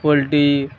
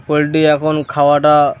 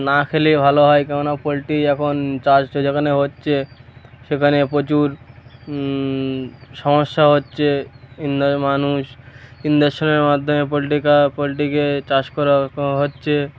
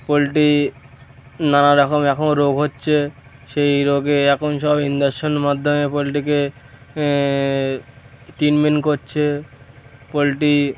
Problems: none marked